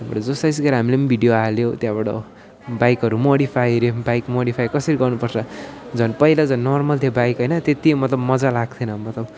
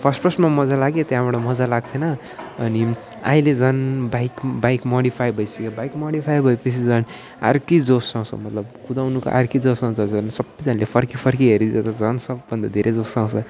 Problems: none marked